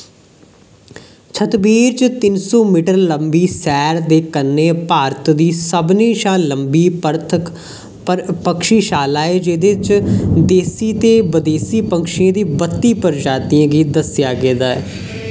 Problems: background sounds at intervals